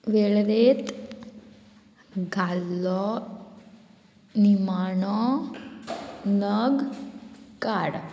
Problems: constant background noise